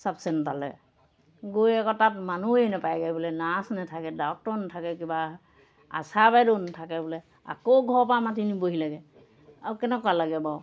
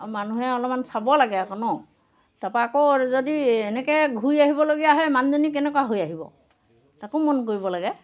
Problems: none marked